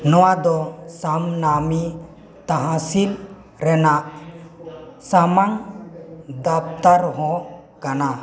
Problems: none marked